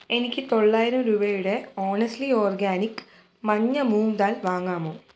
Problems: background sounds at intervals